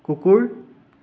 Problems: none marked